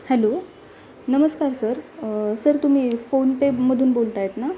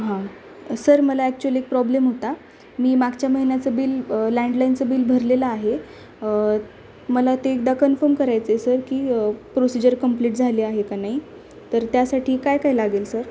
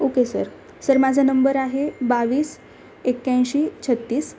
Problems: constant background noise